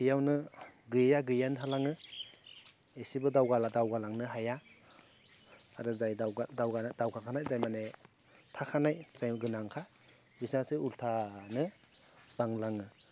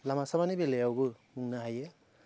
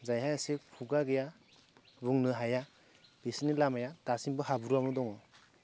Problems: low volume